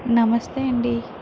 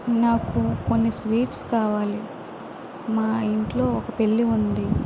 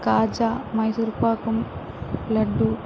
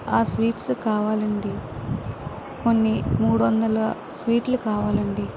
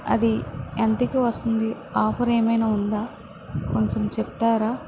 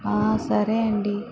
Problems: constant background noise